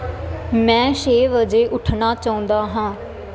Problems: constant background noise